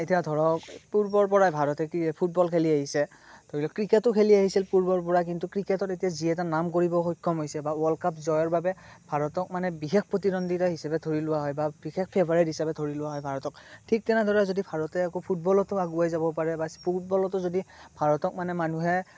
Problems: none marked